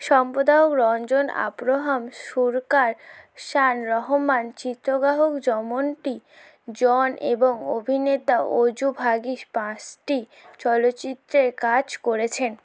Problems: constant background noise